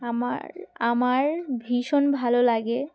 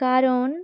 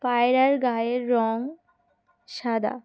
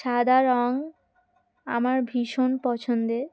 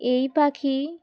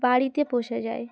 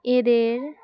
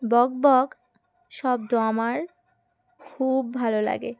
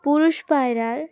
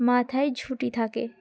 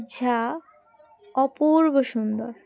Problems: background sounds at intervals, background conversations at intervals